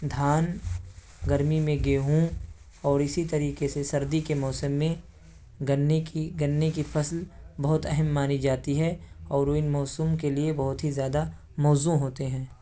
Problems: constant background noise